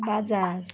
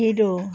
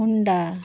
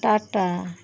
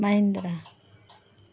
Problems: none marked